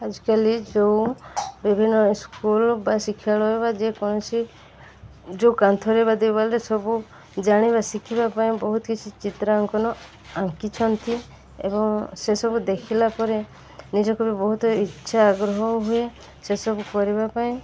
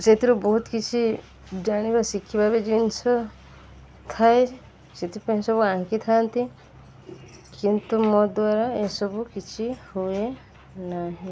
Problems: constant background noise